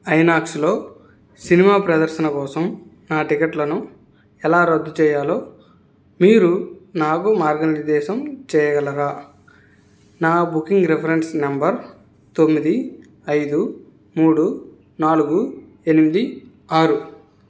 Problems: background sounds at intervals